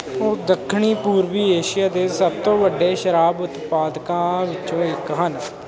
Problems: constant background noise